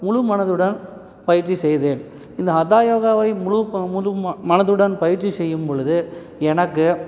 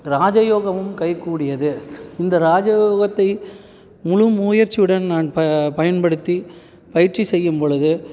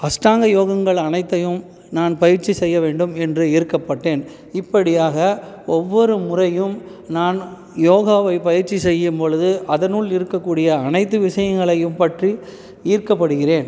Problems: background sounds at intervals